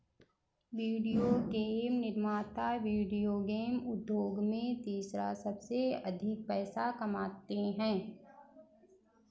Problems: background sounds at intervals